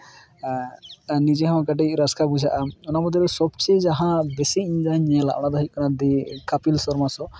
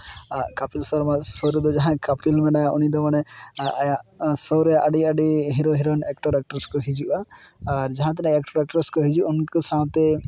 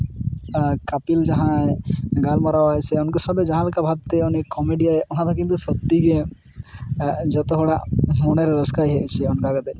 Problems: none marked